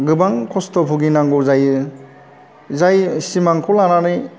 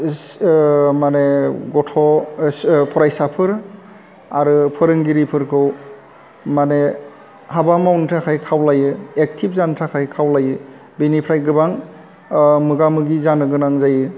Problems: none marked